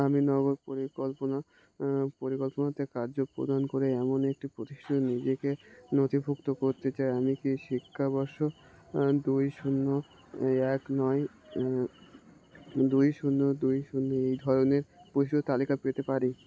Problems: constant background noise